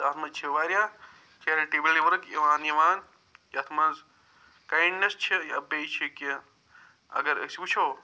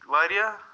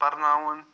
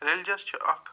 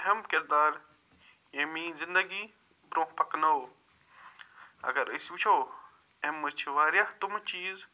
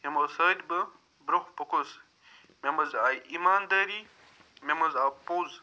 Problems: none marked